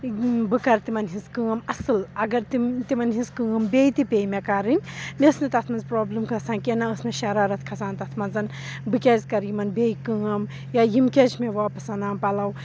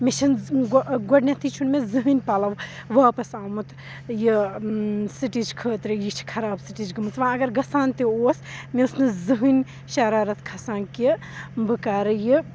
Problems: none marked